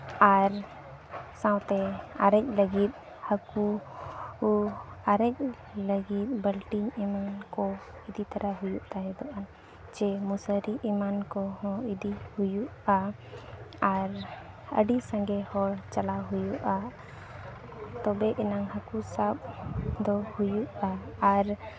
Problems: low volume